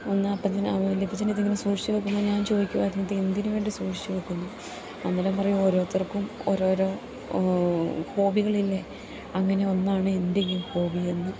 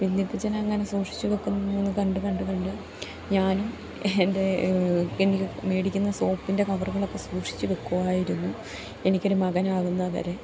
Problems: constant background noise